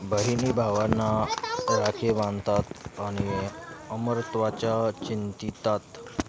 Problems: constant background noise, background conversations at intervals